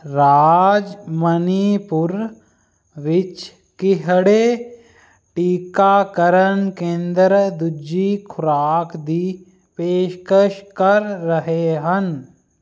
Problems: background sounds at intervals